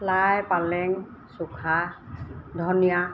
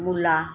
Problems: none marked